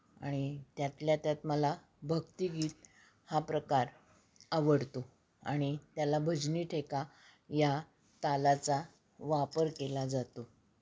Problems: background sounds at intervals